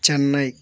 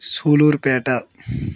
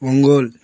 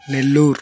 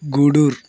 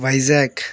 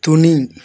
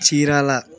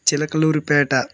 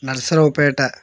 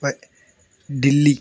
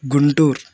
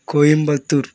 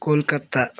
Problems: none marked